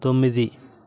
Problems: constant background noise, background conversations at intervals